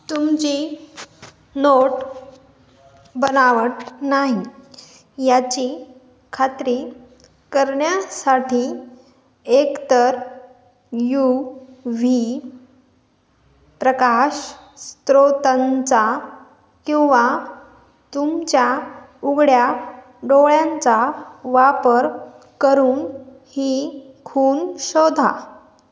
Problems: none marked